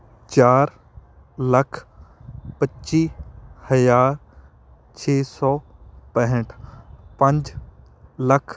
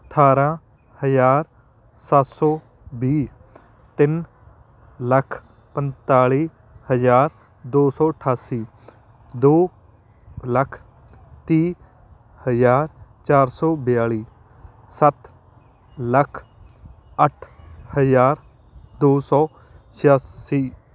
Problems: constant background noise